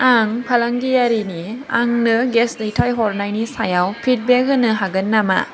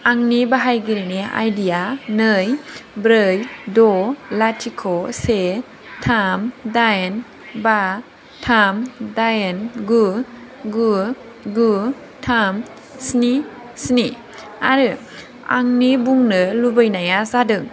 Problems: constant background noise